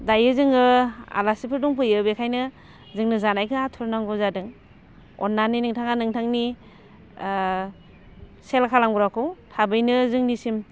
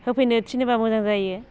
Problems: constant background noise